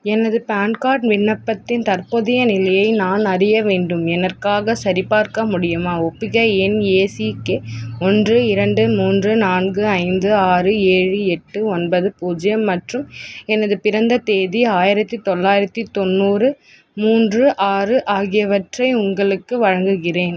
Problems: constant background noise